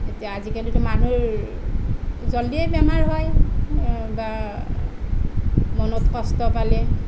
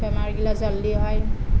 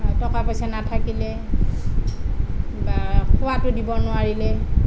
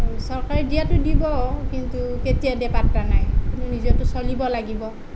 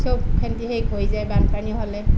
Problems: none marked